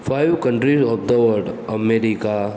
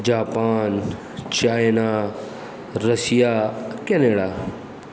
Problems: background sounds at intervals